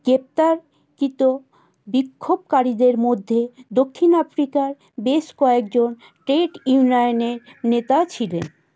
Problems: none marked